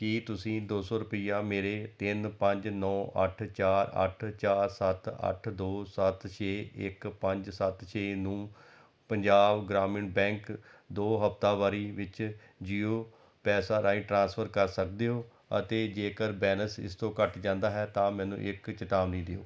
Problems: none marked